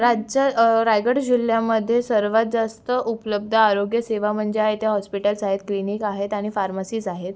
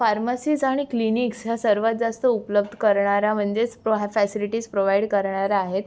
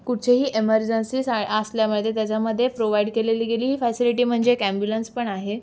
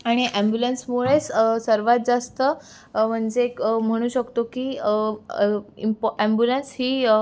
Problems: none marked